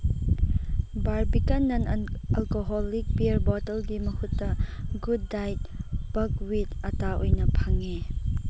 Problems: constant background noise